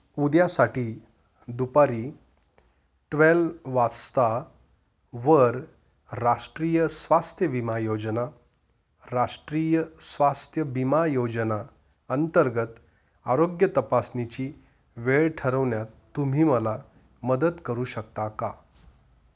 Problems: none marked